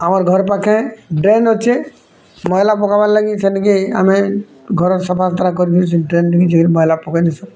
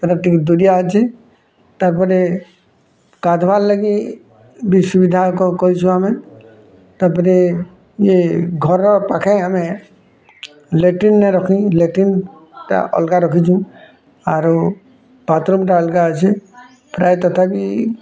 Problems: background sounds at intervals, background conversations at intervals